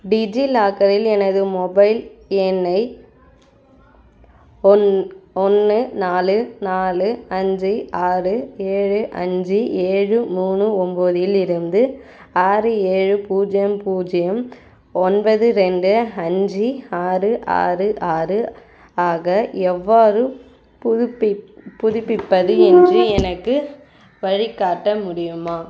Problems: none marked